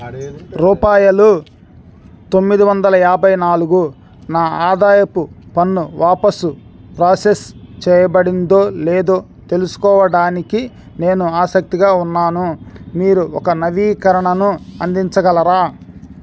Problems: background conversations at intervals